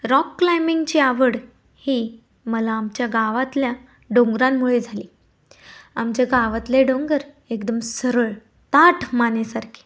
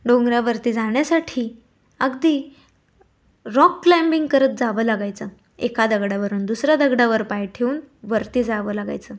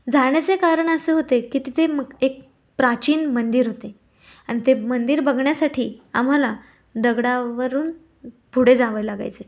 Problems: background sounds at intervals